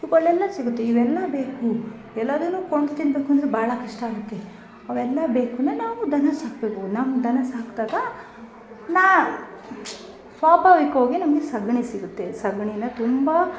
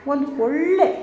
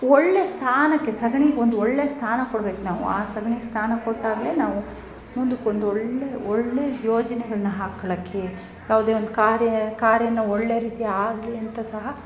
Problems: background sounds at intervals